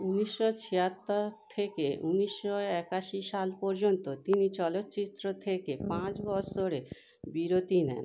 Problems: none marked